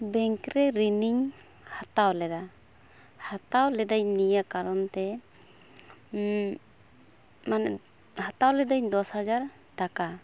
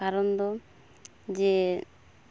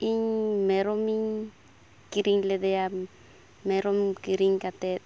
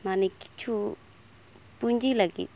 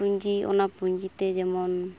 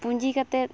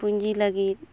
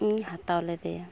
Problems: none marked